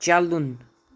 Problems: none marked